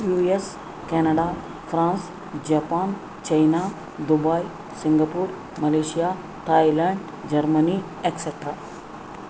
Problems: constant background noise